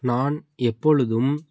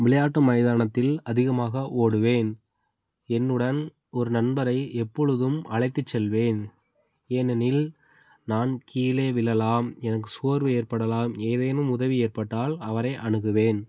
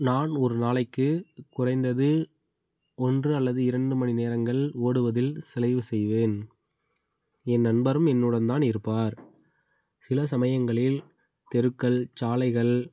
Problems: background sounds at intervals